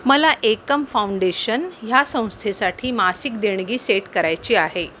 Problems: constant background noise